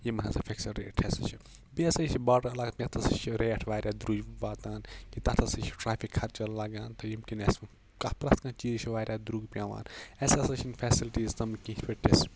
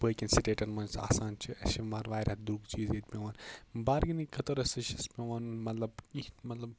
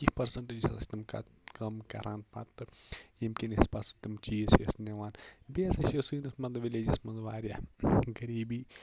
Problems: none marked